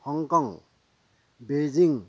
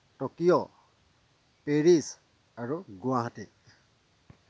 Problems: constant background noise, low volume